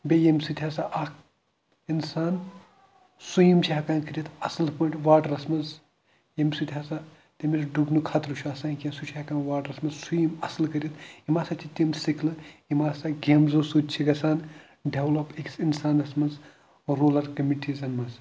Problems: none marked